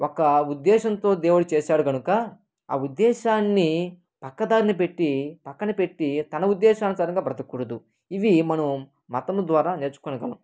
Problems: none marked